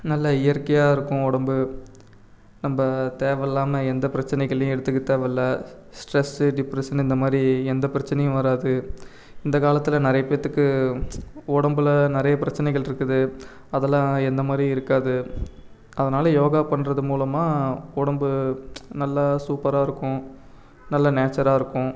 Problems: background sounds at intervals